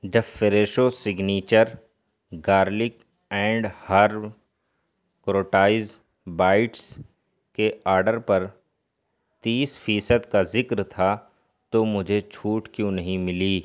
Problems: constant background noise